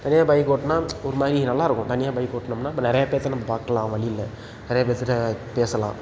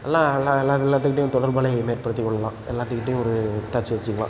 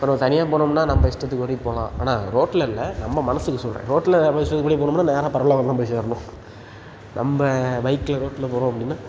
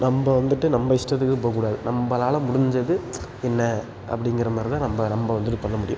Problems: background sounds at intervals